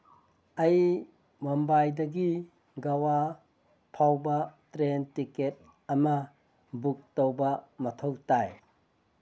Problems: none marked